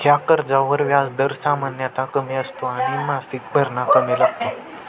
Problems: constant background noise, continuous background conversations